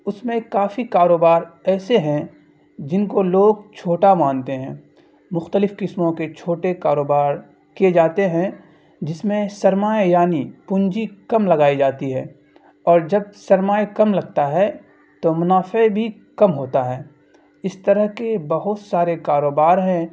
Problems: constant background noise